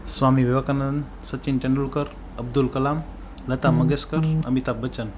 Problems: background sounds at intervals